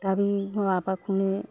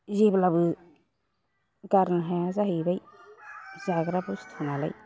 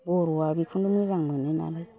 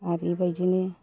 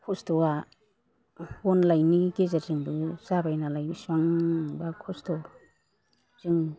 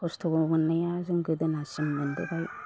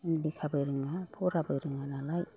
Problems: none marked